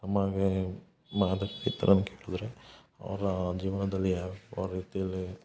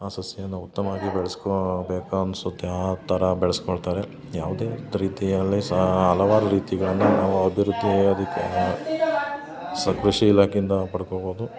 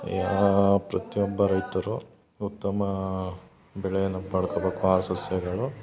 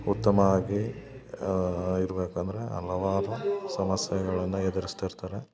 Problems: background conversations at intervals